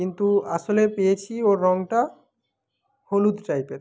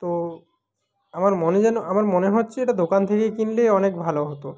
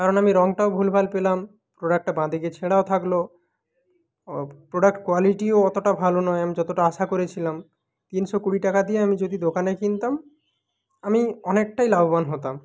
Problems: none marked